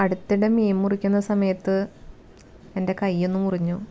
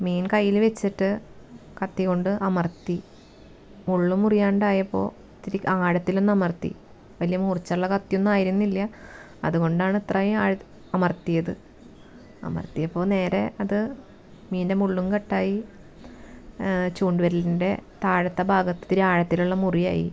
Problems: background sounds at intervals